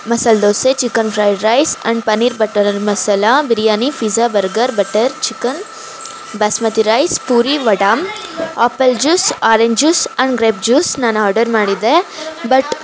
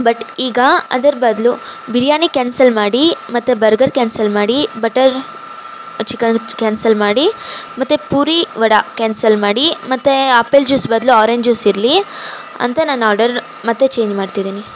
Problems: background sounds at intervals